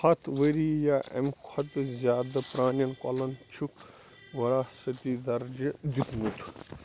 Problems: constant background noise